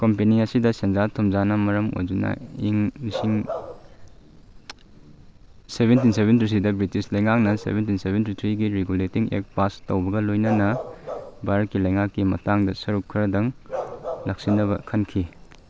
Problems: background sounds at intervals